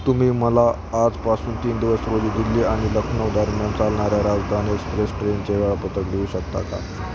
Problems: constant background noise